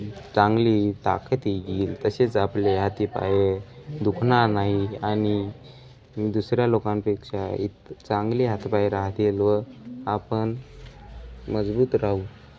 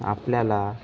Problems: background sounds at intervals